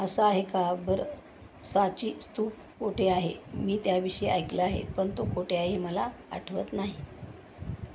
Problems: constant background noise